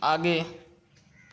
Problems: constant background noise